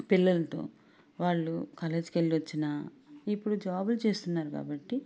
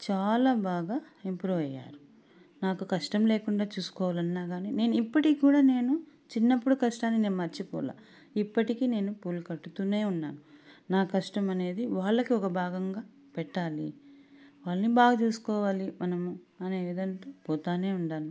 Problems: none marked